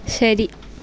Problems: background sounds at intervals